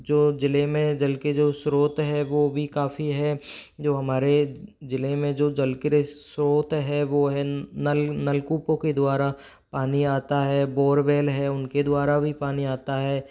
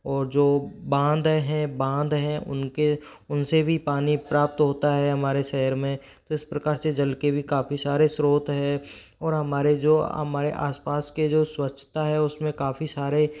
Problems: background sounds at intervals, background conversations at intervals